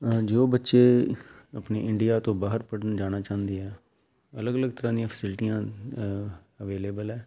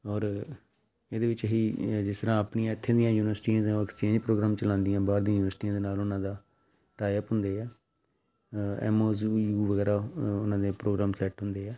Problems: none marked